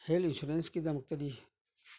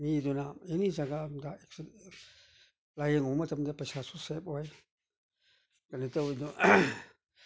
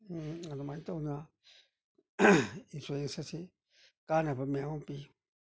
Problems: none marked